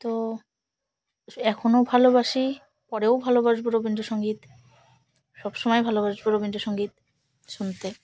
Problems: constant background noise